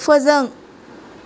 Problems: constant background noise